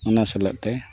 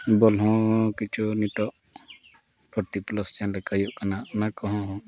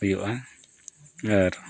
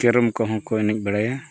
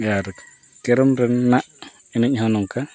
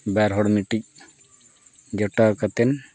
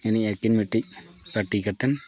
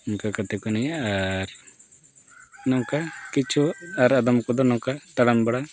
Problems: none marked